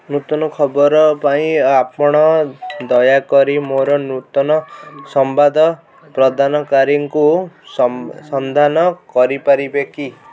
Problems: background sounds at intervals, background conversations at intervals